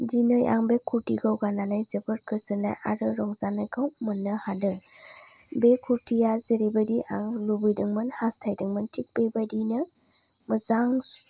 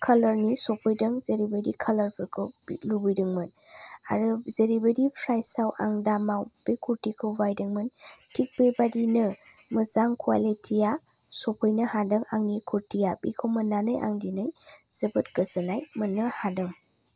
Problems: low volume